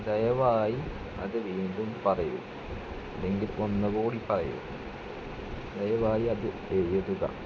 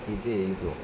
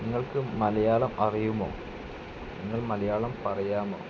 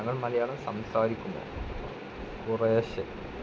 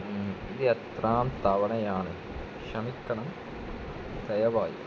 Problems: constant background noise, low volume